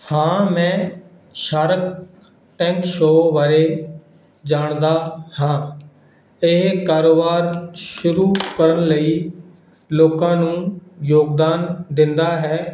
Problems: background sounds at intervals